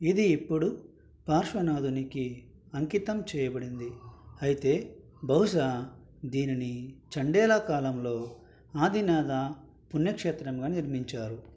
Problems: none marked